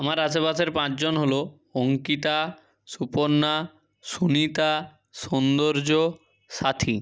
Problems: background sounds at intervals